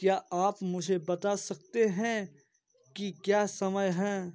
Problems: none marked